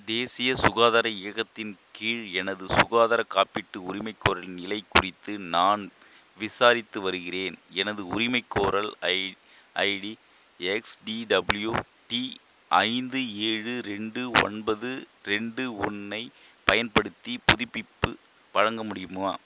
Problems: constant background noise